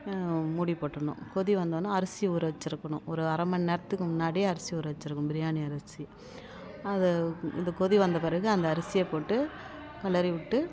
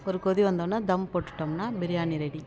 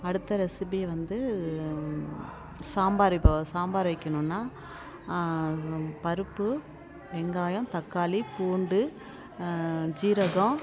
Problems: constant background noise